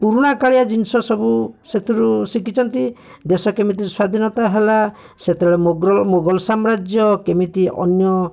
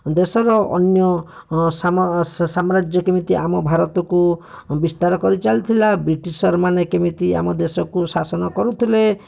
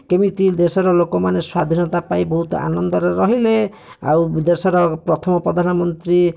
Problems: none marked